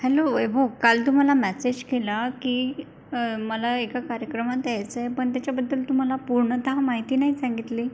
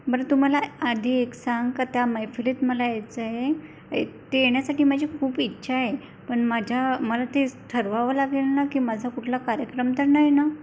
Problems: constant background noise